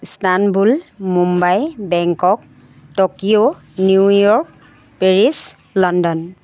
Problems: none marked